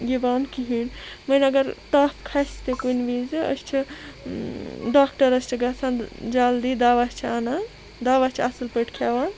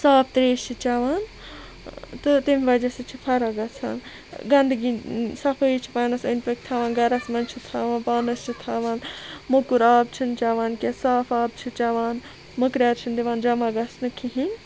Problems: constant background noise